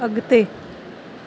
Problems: none marked